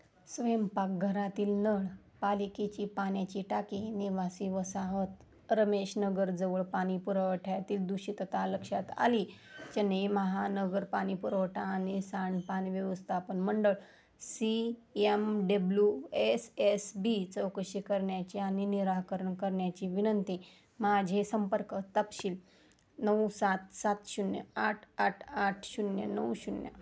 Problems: constant background noise, low volume